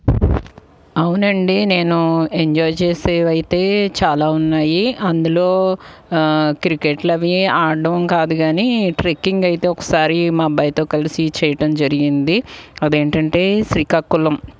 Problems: background sounds at intervals